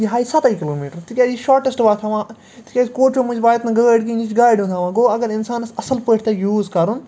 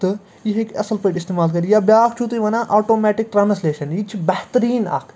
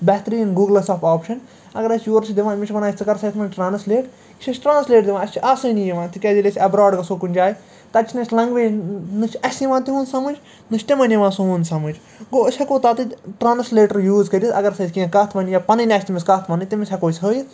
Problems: none marked